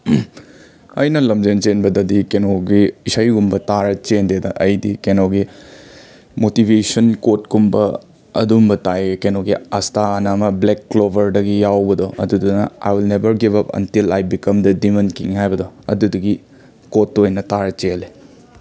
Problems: background sounds at intervals, continuous background conversations